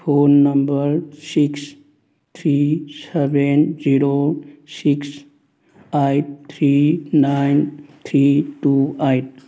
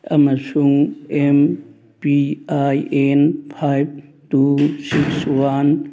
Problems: none marked